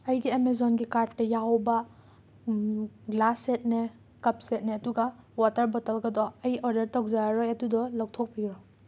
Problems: none marked